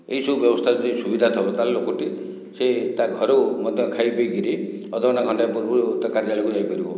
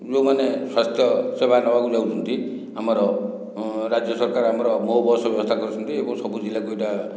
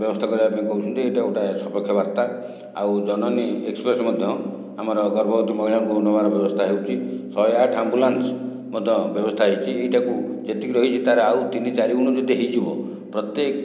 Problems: none marked